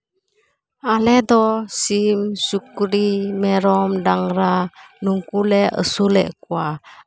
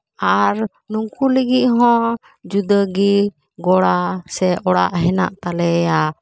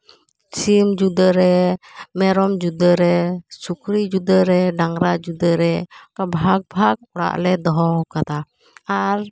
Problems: none marked